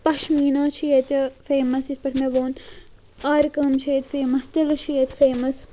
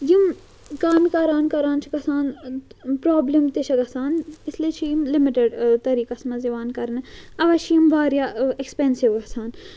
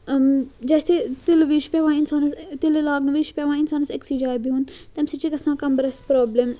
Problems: constant background noise